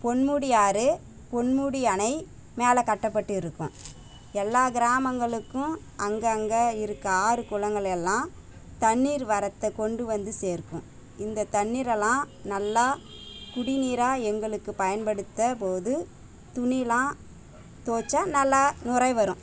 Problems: constant background noise